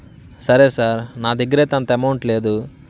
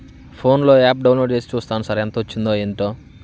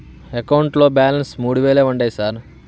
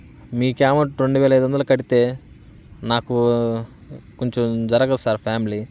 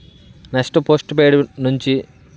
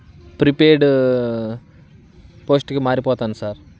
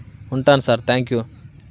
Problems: none marked